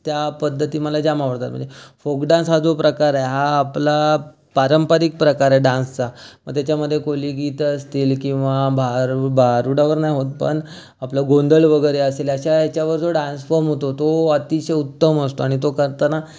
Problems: constant background noise